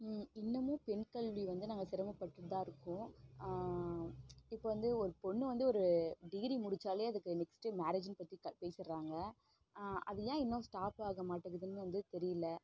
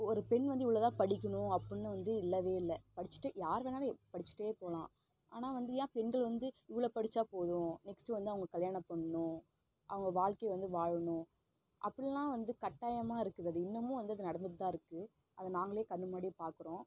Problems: low volume